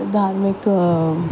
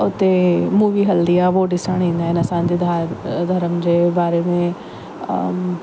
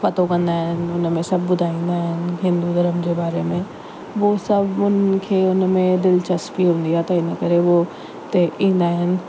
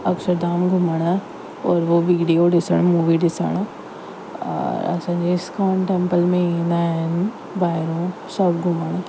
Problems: constant background noise